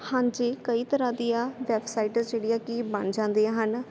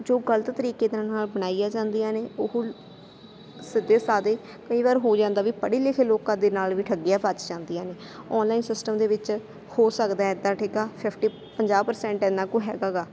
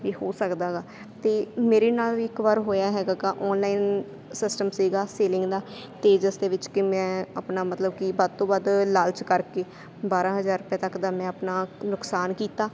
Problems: constant background noise